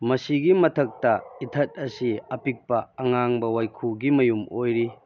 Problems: background sounds at intervals